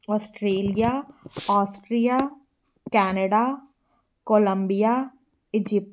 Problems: background sounds at intervals